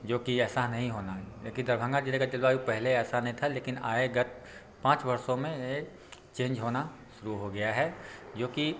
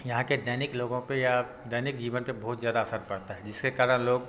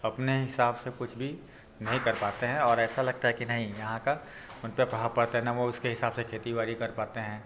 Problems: none marked